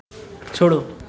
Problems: constant background noise